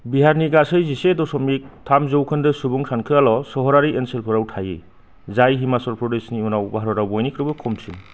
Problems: low volume